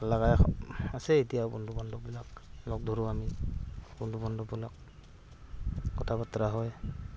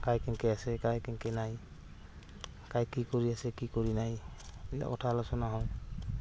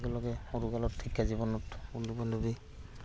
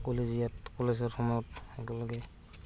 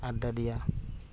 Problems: background sounds at intervals, background conversations at intervals